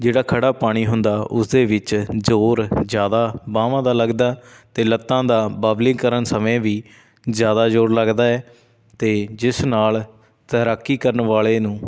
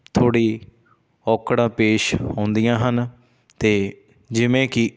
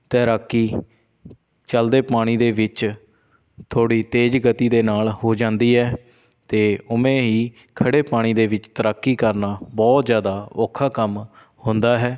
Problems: background sounds at intervals